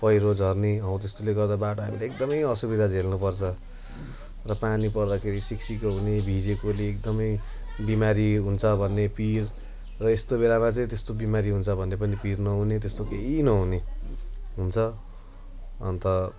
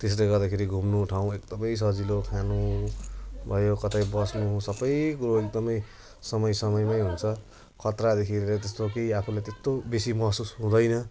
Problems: constant background noise